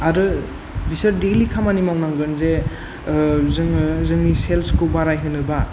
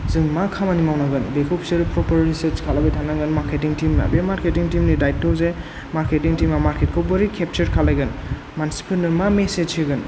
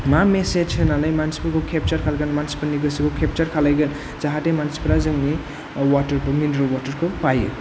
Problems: none marked